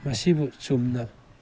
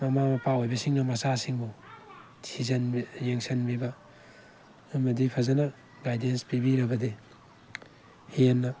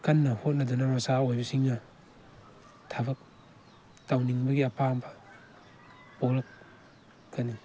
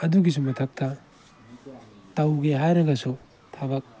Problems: background sounds at intervals